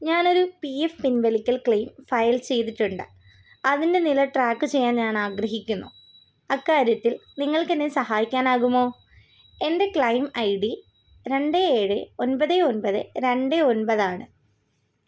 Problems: background sounds at intervals